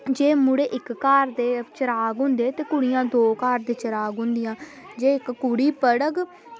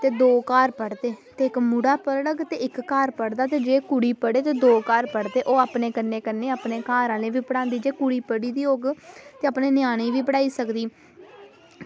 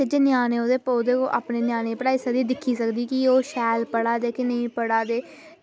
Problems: constant background noise